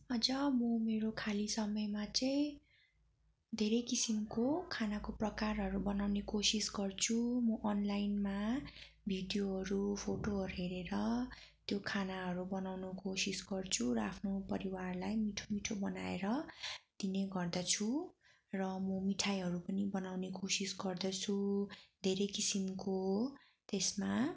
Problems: background sounds at intervals